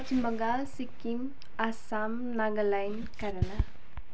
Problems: constant background noise